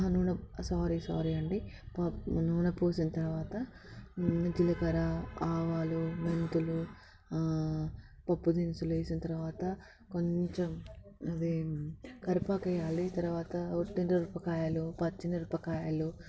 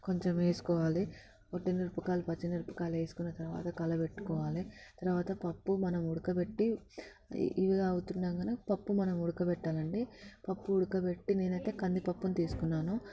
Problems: constant background noise